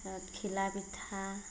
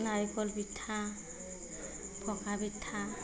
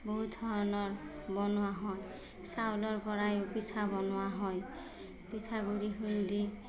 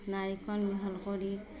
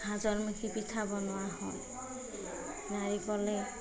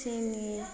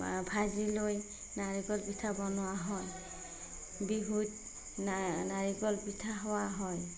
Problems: background sounds at intervals, background conversations at intervals